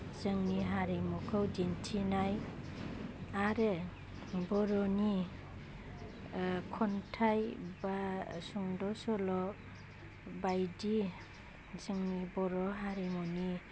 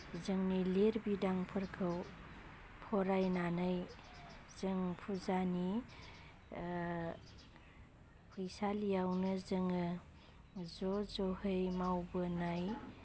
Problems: constant background noise